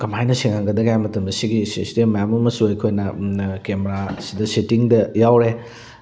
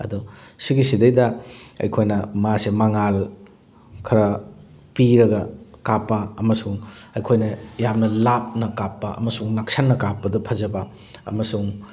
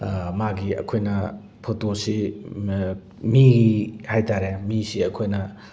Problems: none marked